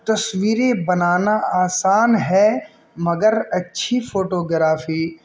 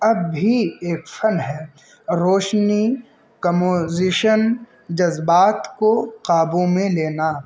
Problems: constant background noise